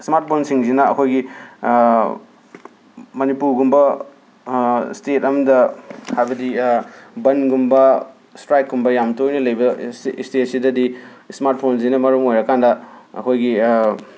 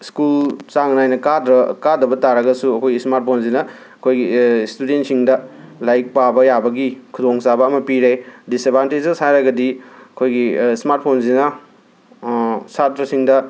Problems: none marked